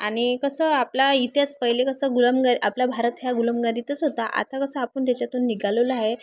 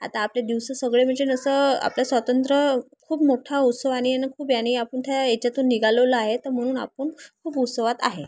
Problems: constant background noise, background conversations at intervals